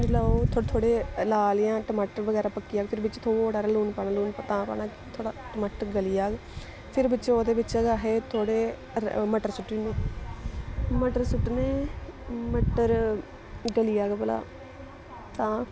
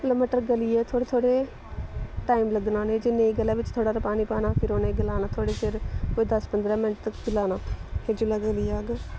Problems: constant background noise